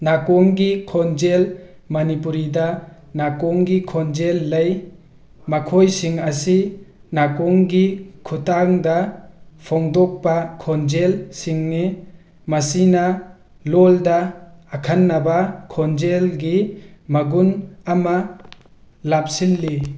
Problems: none marked